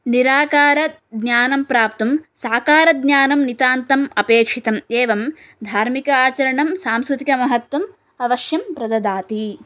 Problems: none marked